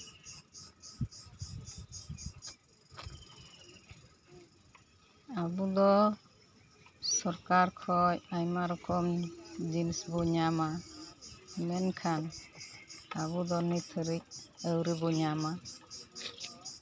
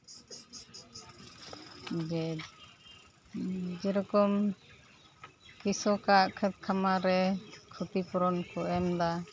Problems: constant background noise